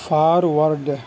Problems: constant background noise